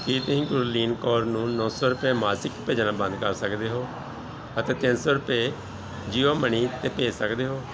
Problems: none marked